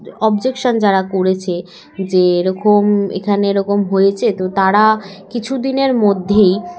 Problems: background sounds at intervals, background conversations at intervals